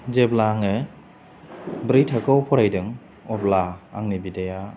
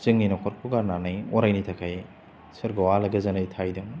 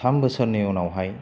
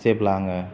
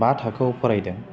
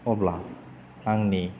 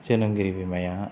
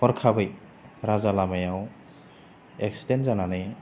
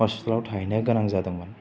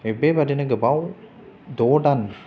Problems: none marked